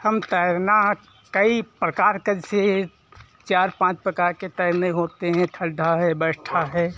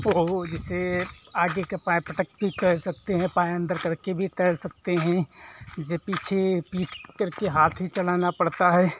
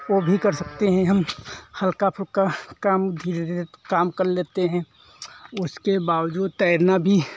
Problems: constant background noise